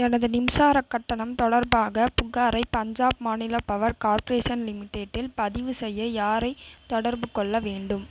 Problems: none marked